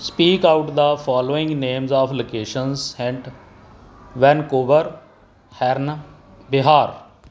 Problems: none marked